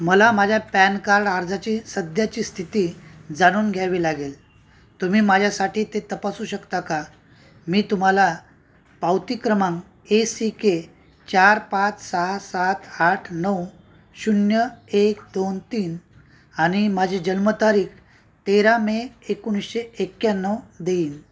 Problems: constant background noise